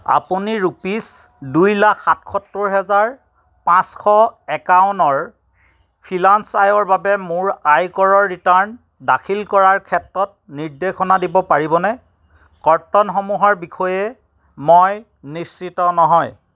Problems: none marked